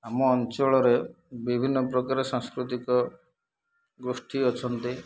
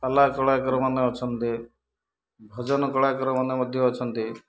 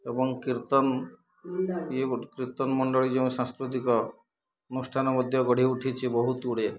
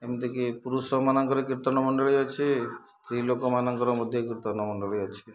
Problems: none marked